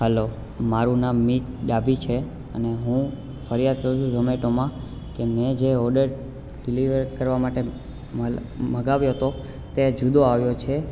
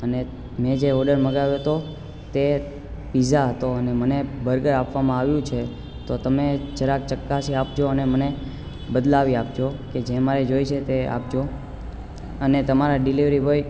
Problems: constant background noise